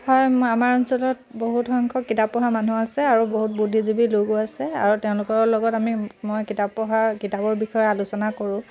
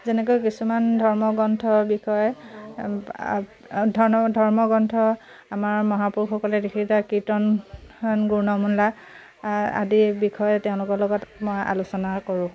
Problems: constant background noise